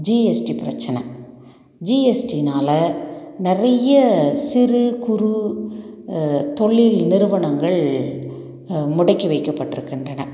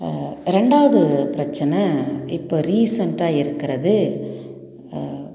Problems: none marked